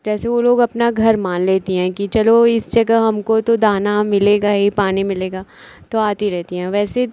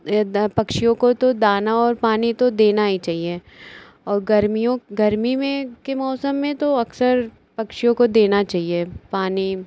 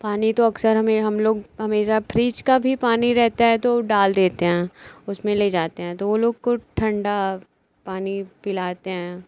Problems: none marked